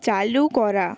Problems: none marked